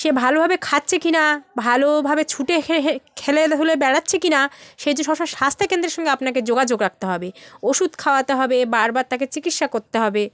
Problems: none marked